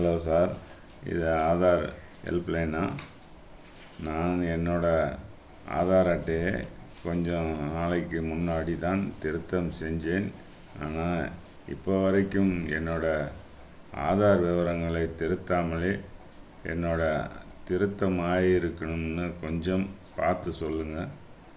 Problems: background sounds at intervals